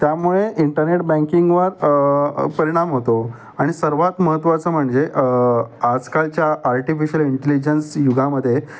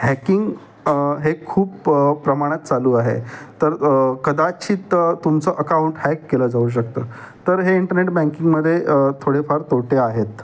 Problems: none marked